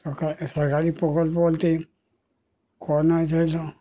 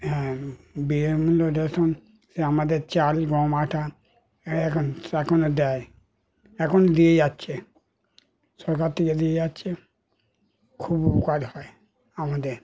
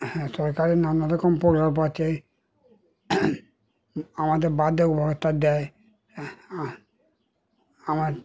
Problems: continuous background conversations